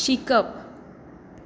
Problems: constant background noise